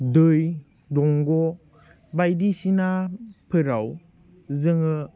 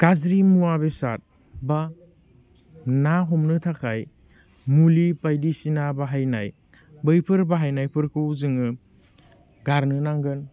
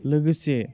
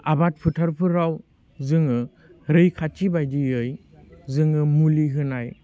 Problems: none marked